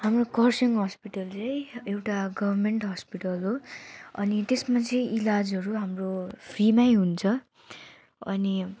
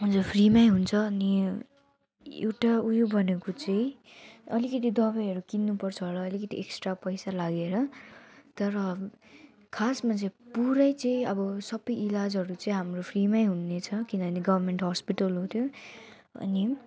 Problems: constant background noise